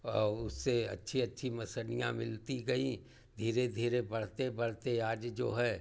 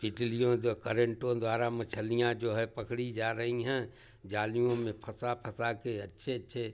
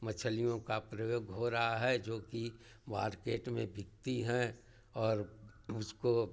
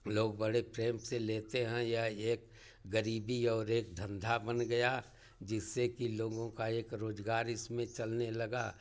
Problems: none marked